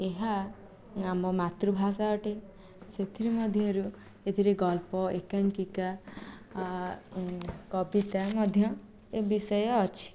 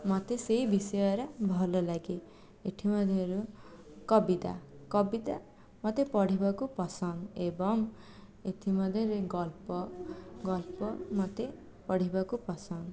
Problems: background conversations at intervals, low volume